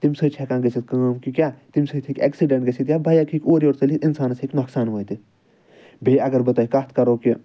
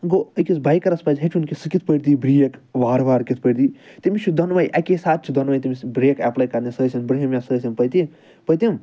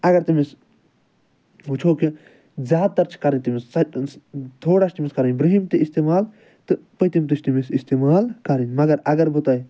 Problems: none marked